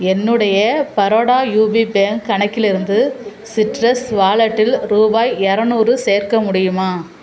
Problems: none marked